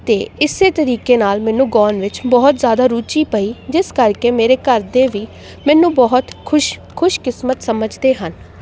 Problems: none marked